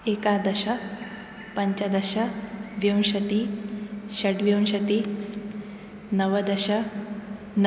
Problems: none marked